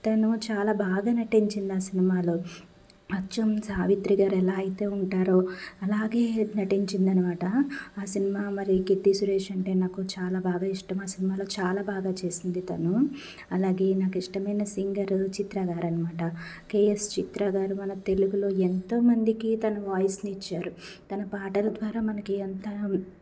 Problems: constant background noise